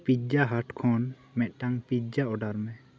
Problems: low volume